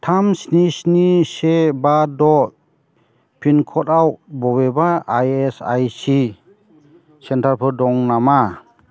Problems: constant background noise